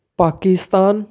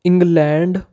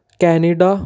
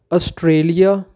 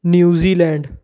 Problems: background sounds at intervals